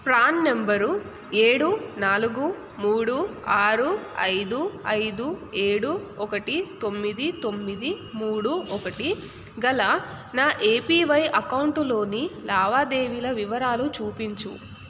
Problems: constant background noise